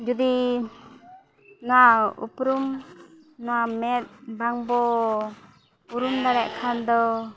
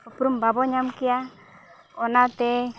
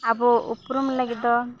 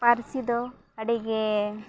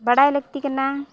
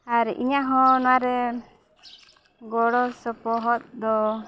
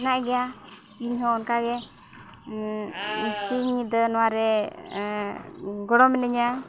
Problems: background sounds at intervals, background conversations at intervals